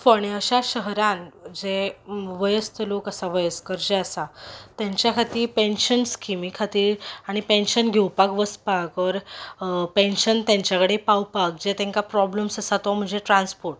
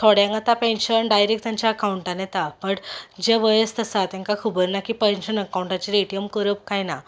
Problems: background sounds at intervals